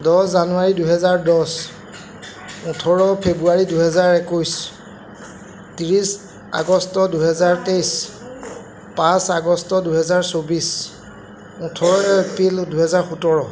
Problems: constant background noise